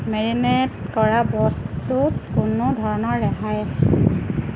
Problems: none marked